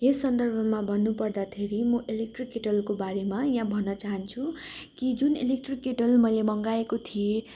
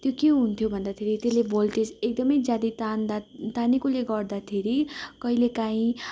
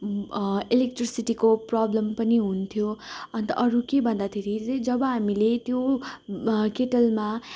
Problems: none marked